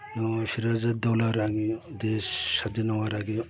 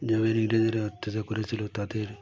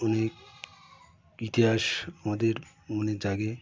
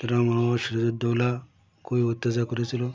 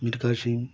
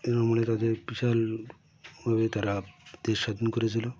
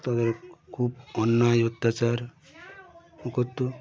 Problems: constant background noise, continuous background conversations